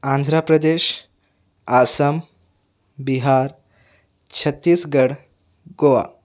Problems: none marked